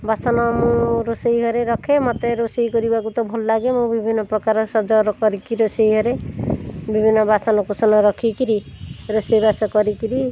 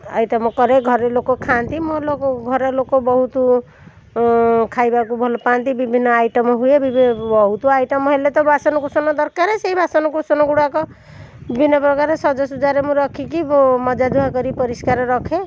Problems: constant background noise